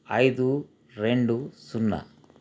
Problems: constant background noise